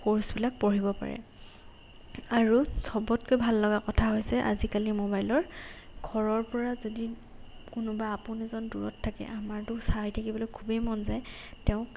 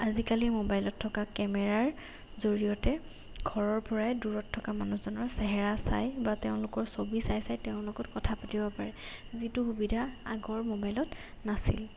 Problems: background sounds at intervals